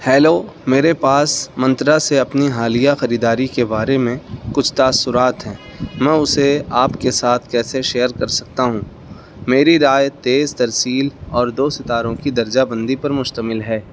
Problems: background sounds at intervals